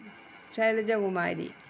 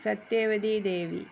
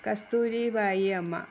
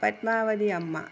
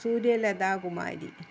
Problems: background sounds at intervals